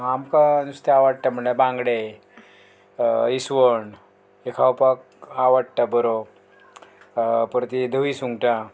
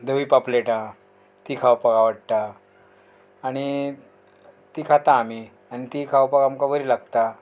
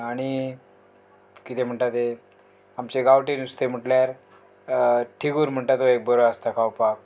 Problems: none marked